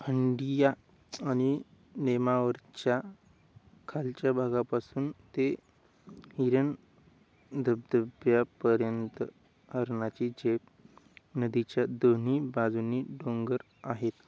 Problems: constant background noise